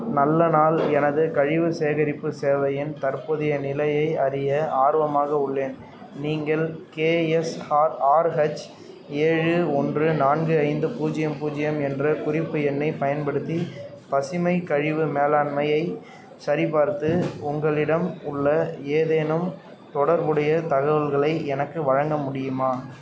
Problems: background conversations at intervals